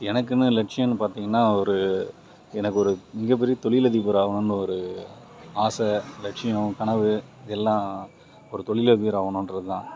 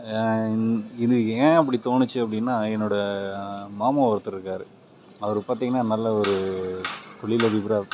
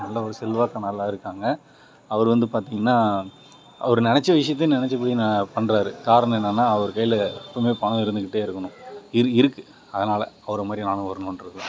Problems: background sounds at intervals